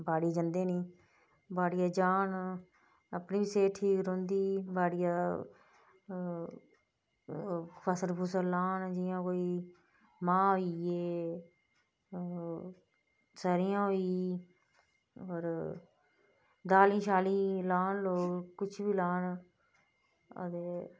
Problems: low volume